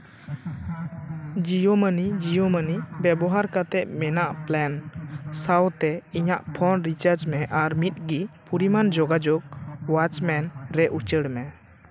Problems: background sounds at intervals, continuous background conversations